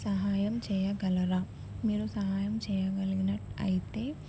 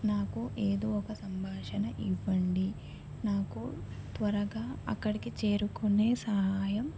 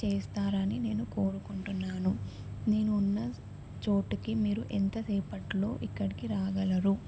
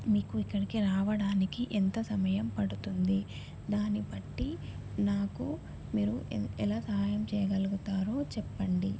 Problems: background sounds at intervals